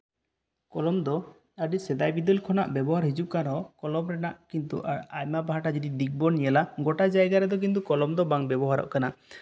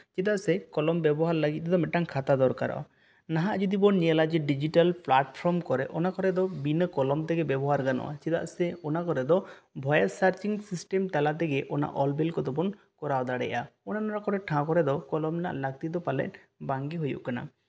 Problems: none marked